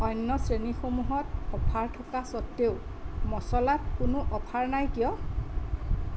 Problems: constant background noise